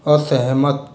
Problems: constant background noise